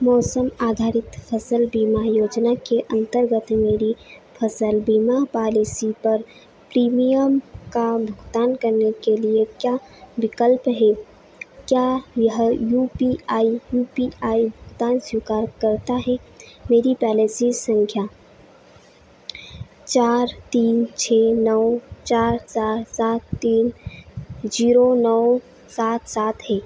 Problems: none marked